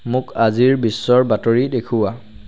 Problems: background sounds at intervals